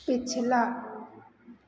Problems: none marked